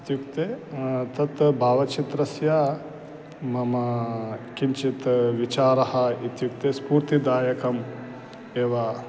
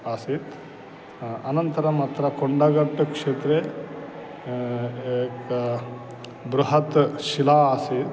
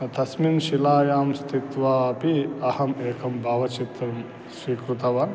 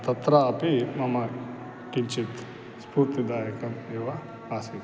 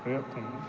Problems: none marked